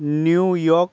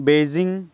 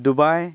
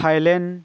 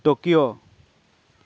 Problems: background sounds at intervals, continuous background conversations